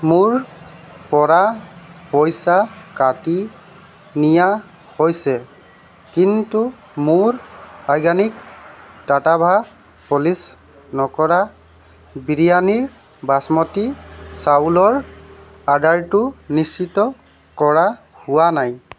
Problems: none marked